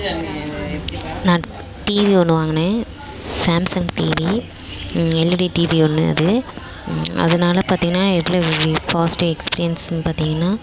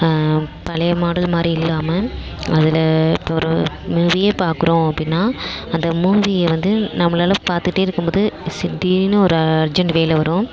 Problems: none marked